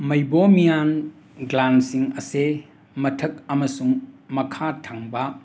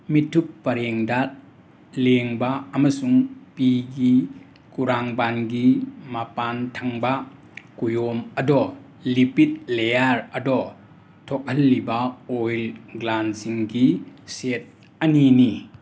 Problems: constant background noise